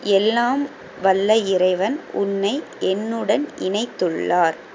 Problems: constant background noise